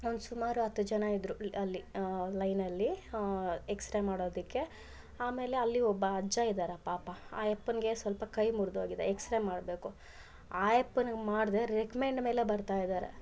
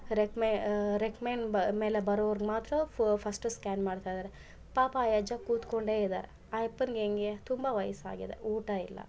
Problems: none marked